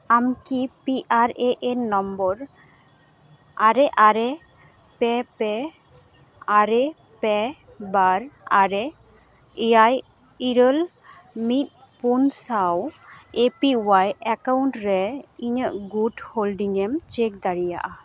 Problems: background sounds at intervals